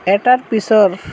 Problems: constant background noise